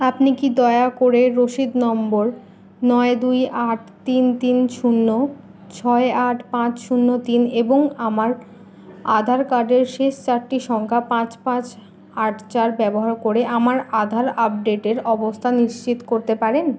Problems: constant background noise